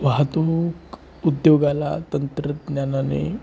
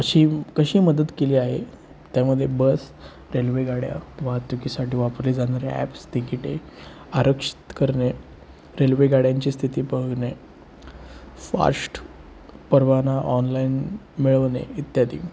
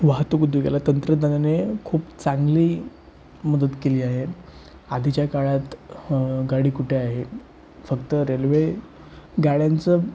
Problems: constant background noise